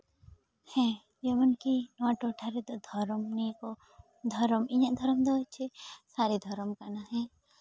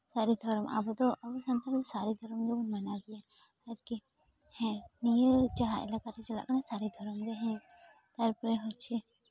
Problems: none marked